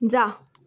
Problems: background sounds at intervals